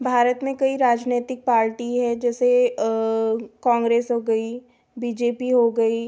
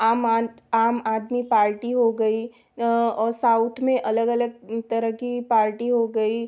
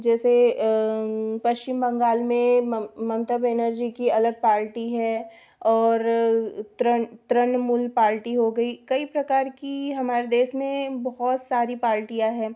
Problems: background sounds at intervals